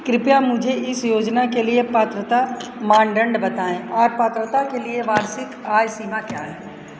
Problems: none marked